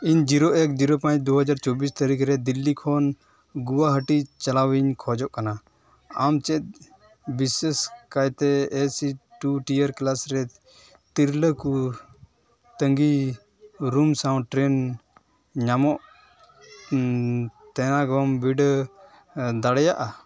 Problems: constant background noise